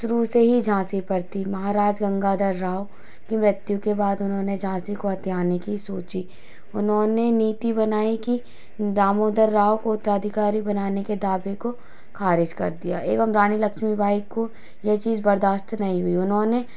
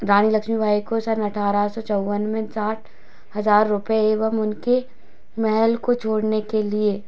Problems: constant background noise